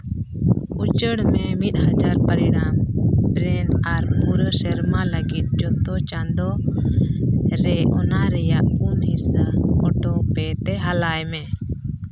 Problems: background sounds at intervals